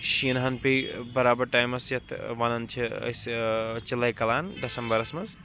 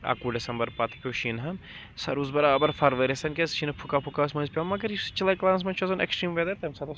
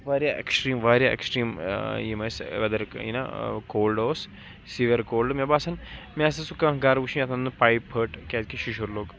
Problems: constant background noise, background conversations at intervals